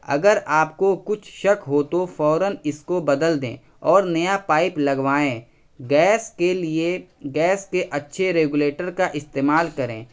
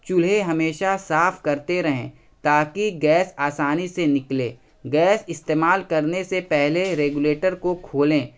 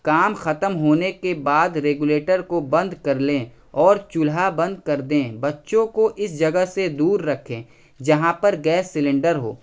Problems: none marked